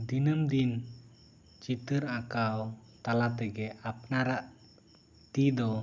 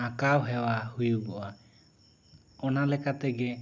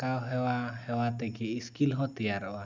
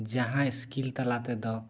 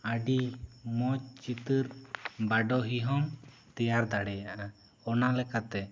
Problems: none marked